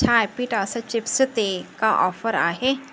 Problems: none marked